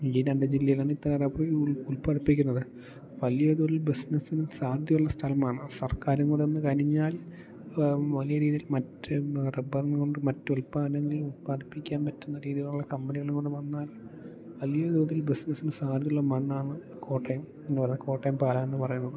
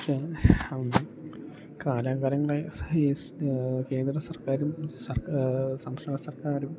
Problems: none marked